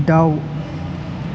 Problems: constant background noise